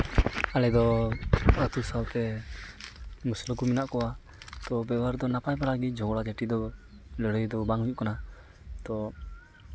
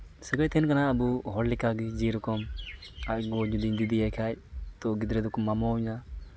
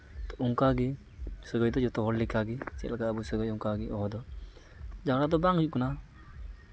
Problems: background sounds at intervals